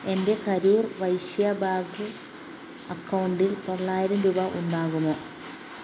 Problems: low volume